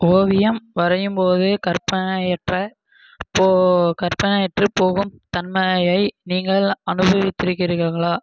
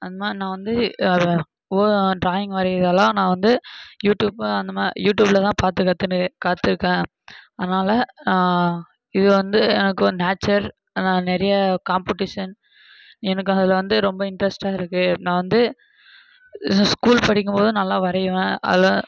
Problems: constant background noise